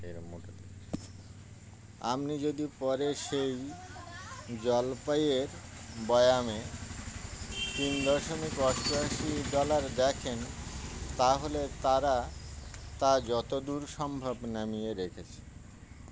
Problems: constant background noise